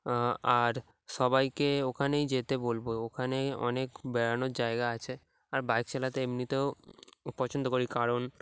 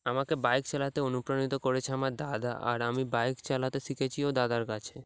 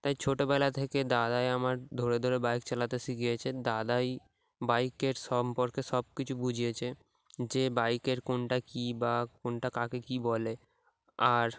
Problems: background sounds at intervals